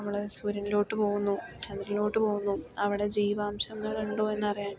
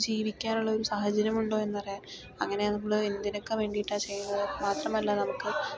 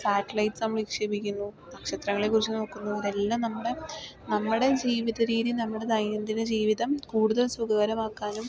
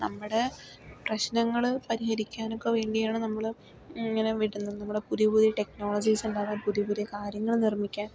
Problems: low volume